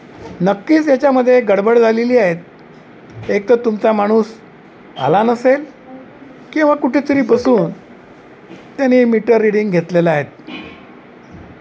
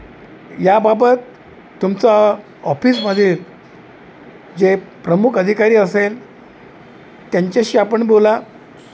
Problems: none marked